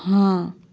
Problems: none marked